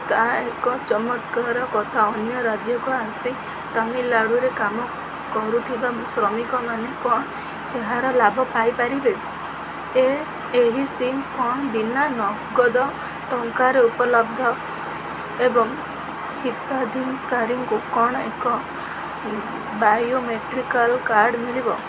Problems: none marked